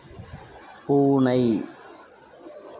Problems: background sounds at intervals